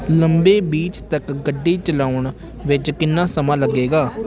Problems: background sounds at intervals